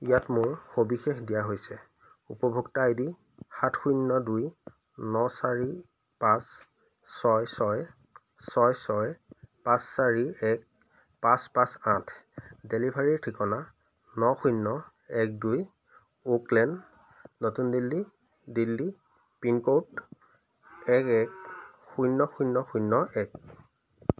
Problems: constant background noise